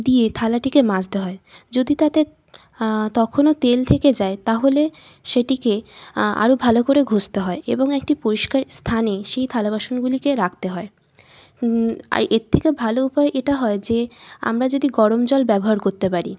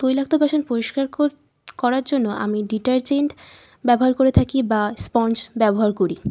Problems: none marked